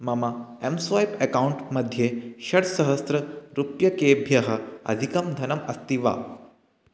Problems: none marked